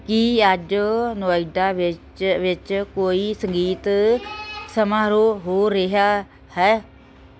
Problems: none marked